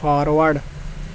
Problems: constant background noise